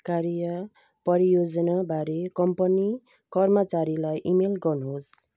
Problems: none marked